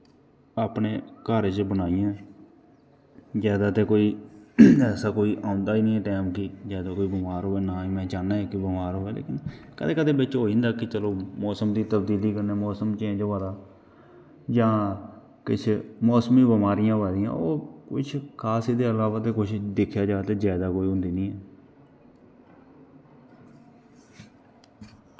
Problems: background sounds at intervals